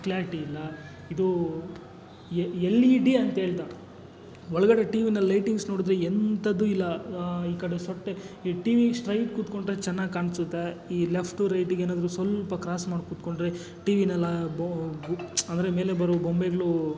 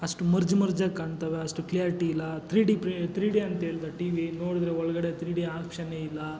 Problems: none marked